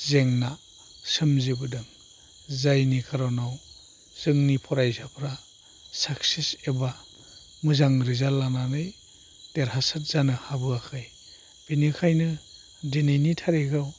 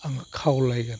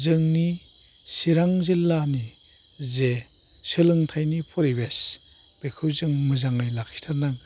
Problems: low volume